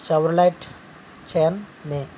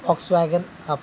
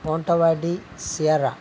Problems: constant background noise